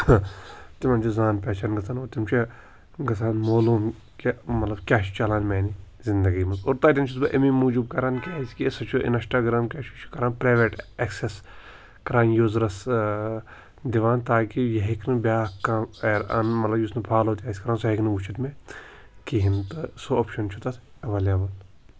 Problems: constant background noise